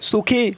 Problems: continuous background conversations